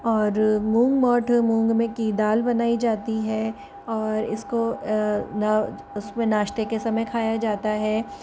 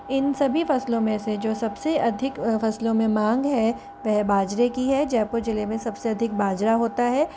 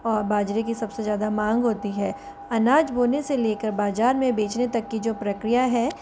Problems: constant background noise